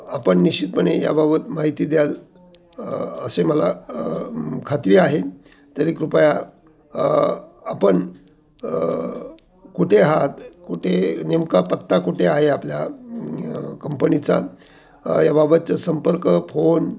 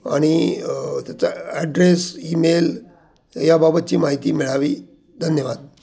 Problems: none marked